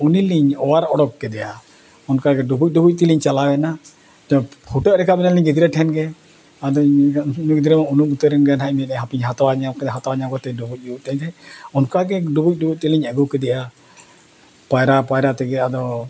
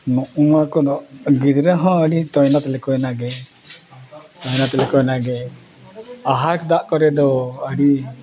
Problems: background conversations at intervals